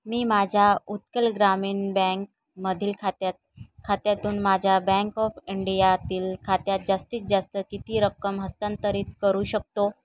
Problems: background sounds at intervals